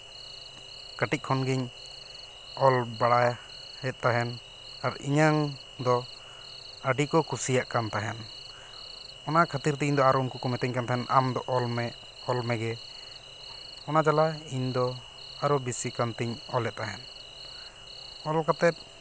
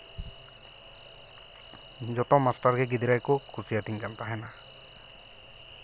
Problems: none marked